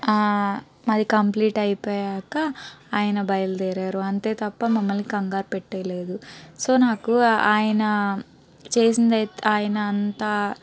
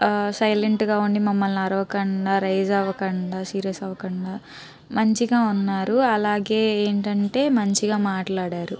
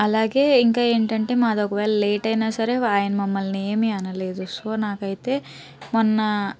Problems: background sounds at intervals, background conversations at intervals